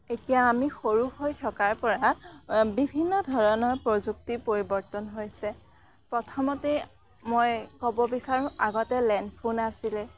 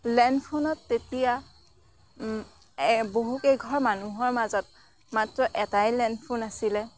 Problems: none marked